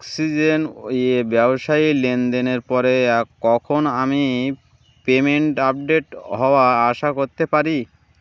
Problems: none marked